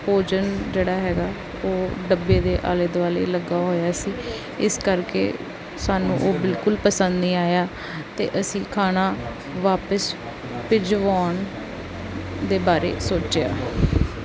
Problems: none marked